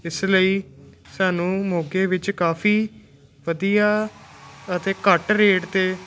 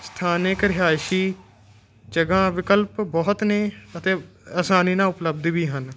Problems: constant background noise